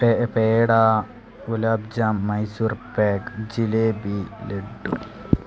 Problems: constant background noise